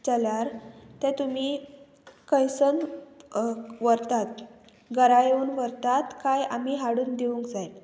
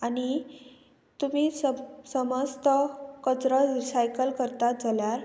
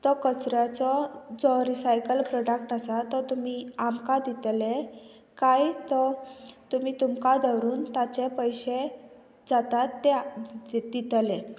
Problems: constant background noise